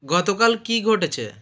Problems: none marked